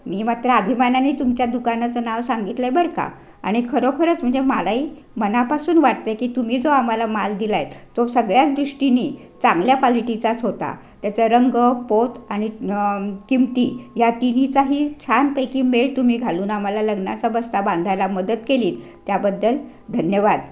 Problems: constant background noise